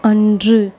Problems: constant background noise